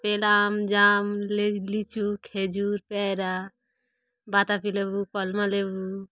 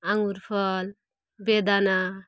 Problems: constant background noise